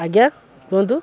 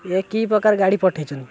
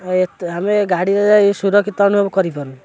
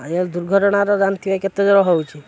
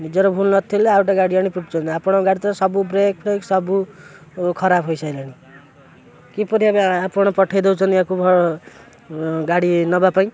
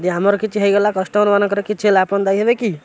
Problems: constant background noise